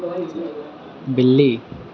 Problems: none marked